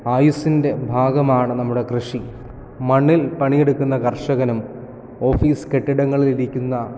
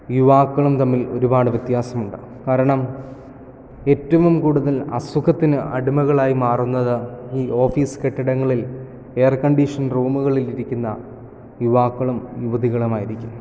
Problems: none marked